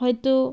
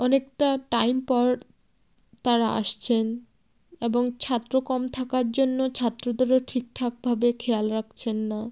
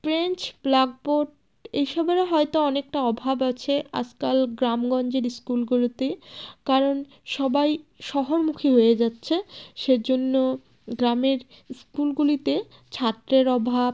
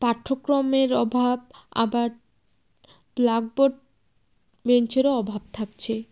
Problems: none marked